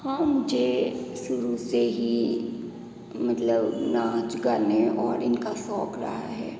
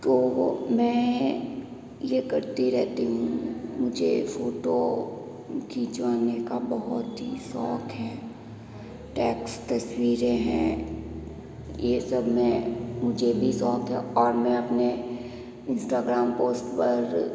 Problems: background sounds at intervals